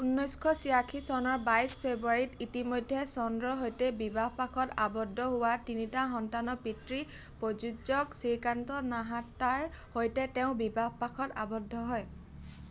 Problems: constant background noise